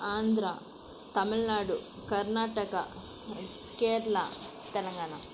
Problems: none marked